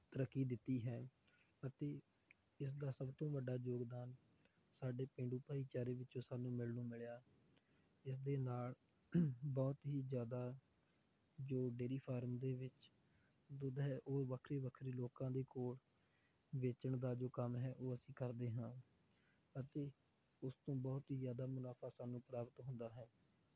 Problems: low volume